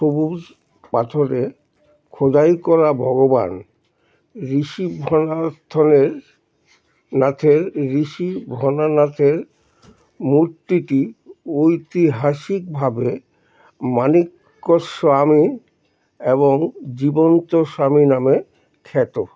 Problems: none marked